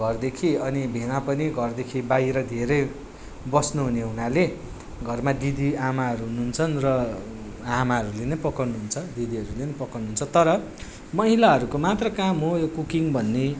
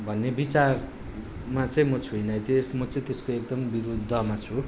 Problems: background sounds at intervals